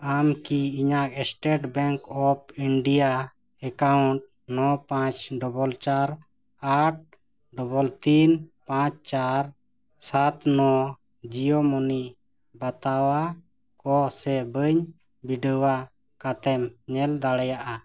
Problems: background sounds at intervals